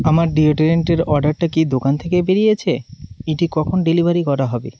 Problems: constant background noise